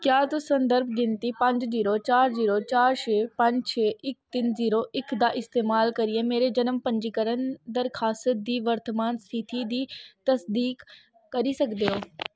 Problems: none marked